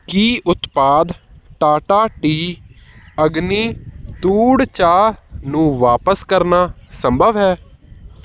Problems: none marked